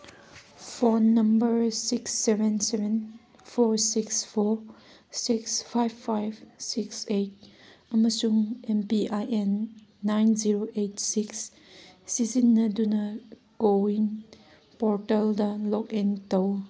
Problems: none marked